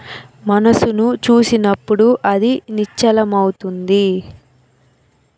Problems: constant background noise